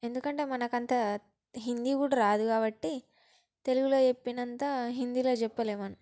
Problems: background sounds at intervals, background conversations at intervals